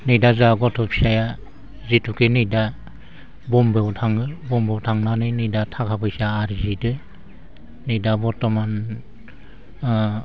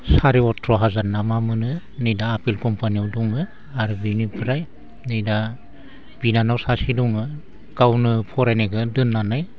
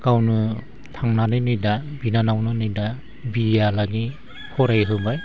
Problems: constant background noise